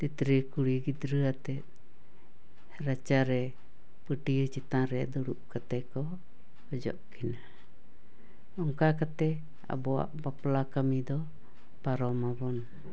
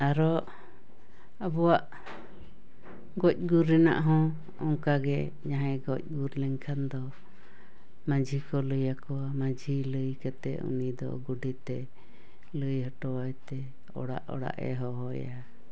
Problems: none marked